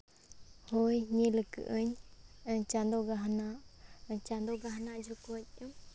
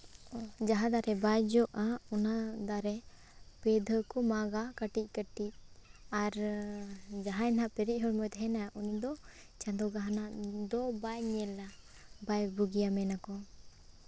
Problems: background sounds at intervals